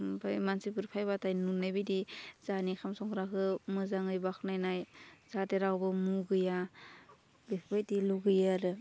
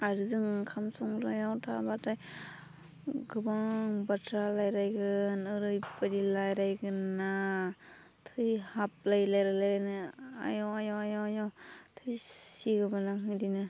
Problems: low volume